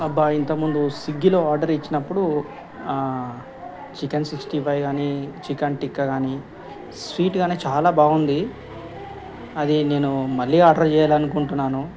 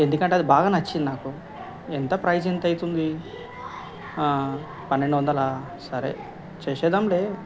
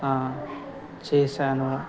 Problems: background conversations at intervals